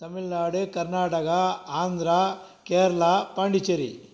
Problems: none marked